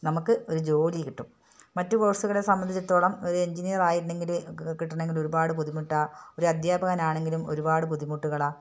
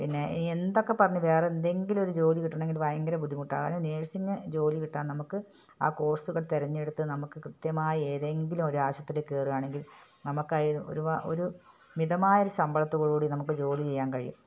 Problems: none marked